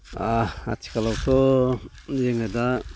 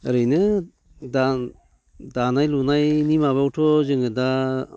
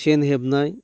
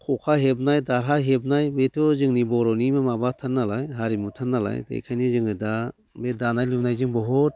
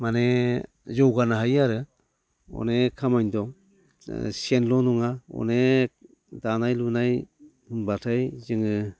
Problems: none marked